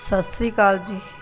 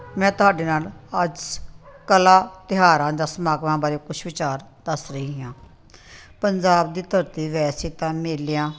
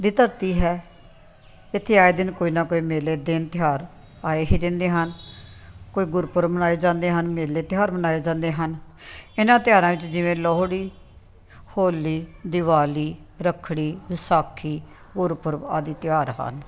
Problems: background sounds at intervals